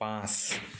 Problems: background sounds at intervals